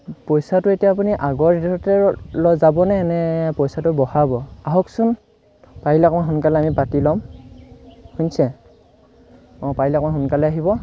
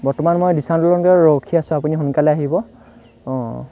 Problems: constant background noise